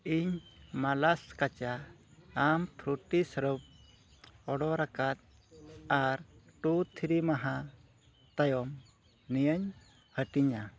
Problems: background sounds at intervals